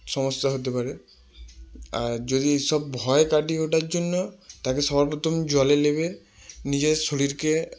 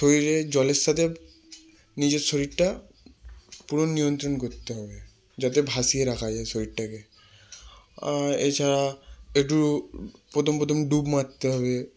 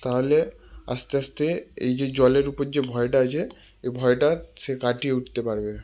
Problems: constant background noise